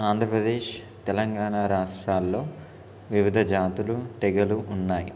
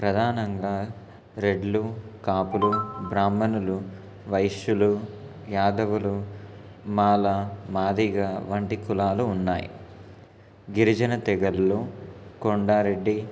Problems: constant background noise